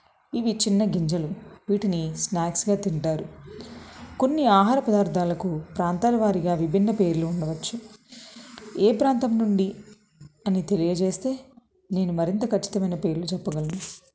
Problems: none marked